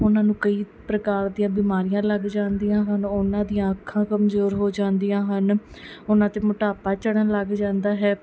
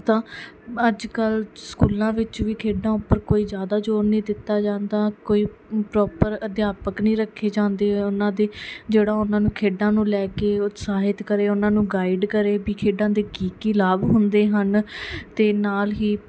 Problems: background sounds at intervals